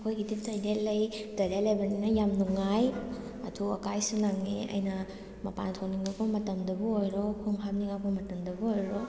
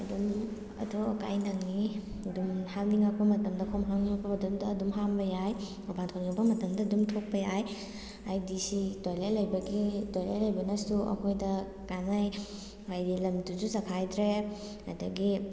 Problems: background sounds at intervals